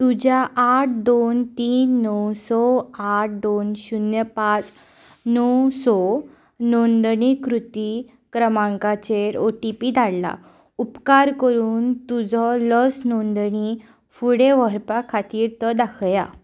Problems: background sounds at intervals